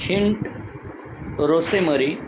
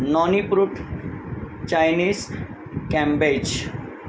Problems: constant background noise